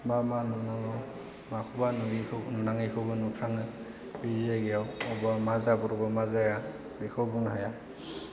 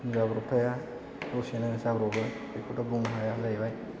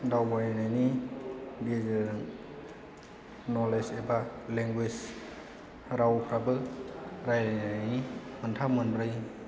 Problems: low volume